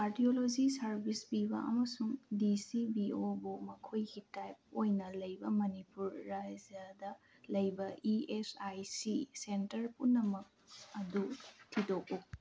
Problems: low volume